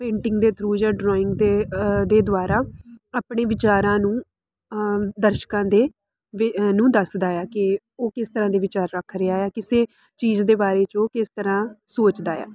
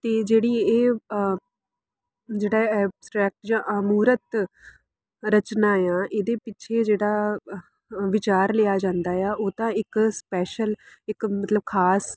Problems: none marked